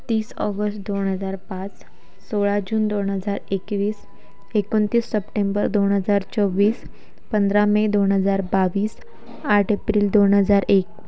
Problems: none marked